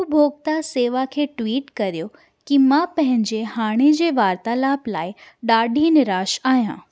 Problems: none marked